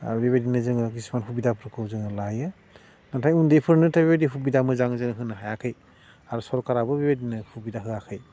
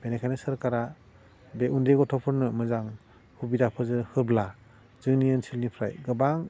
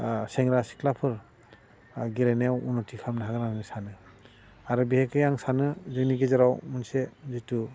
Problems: constant background noise